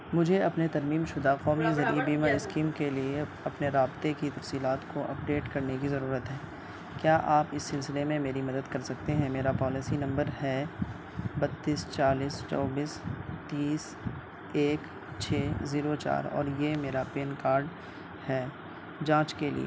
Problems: constant background noise